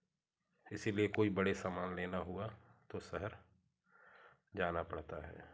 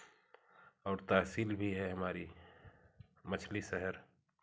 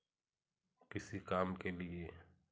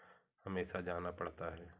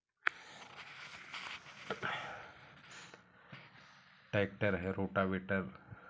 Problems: background sounds at intervals, continuous background conversations